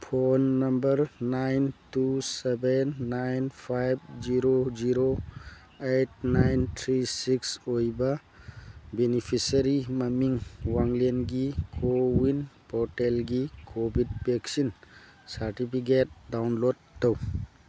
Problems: background sounds at intervals